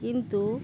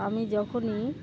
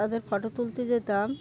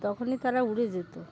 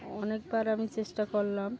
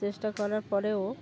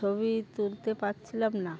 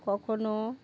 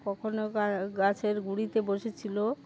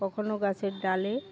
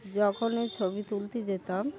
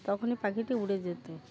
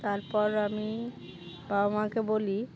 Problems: constant background noise, continuous background conversations